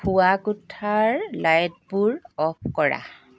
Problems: none marked